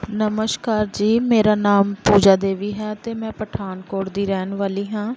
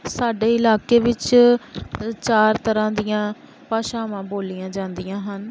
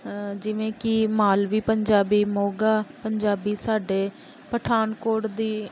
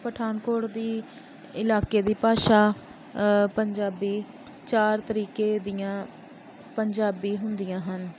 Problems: constant background noise